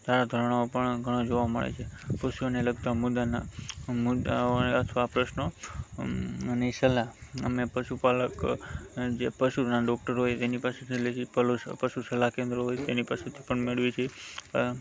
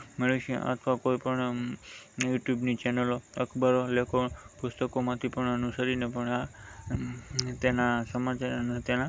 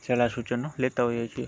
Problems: background sounds at intervals